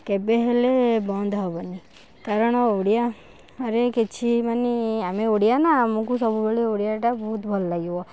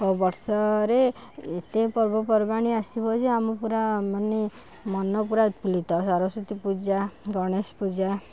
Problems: background conversations at intervals